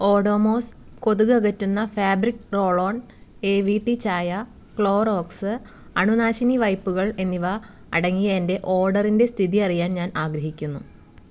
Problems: background sounds at intervals